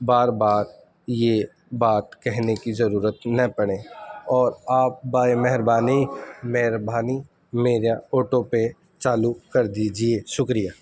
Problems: constant background noise